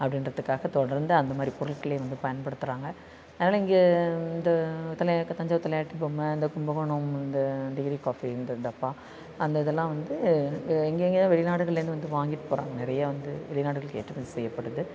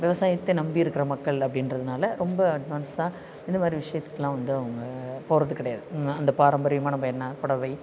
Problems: constant background noise